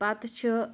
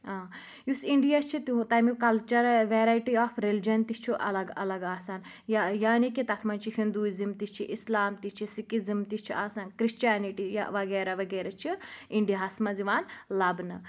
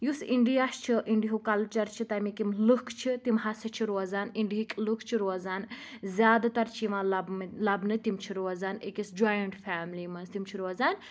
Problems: constant background noise